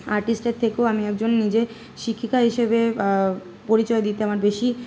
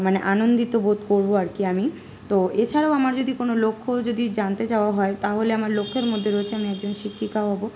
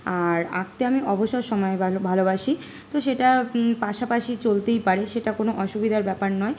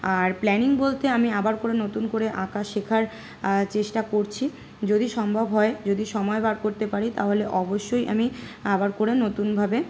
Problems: constant background noise